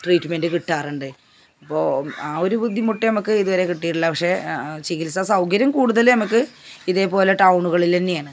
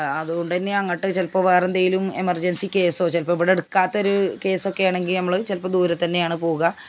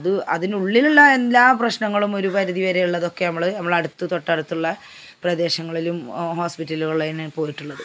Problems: background sounds at intervals